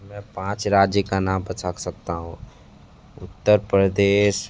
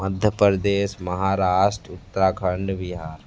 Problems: none marked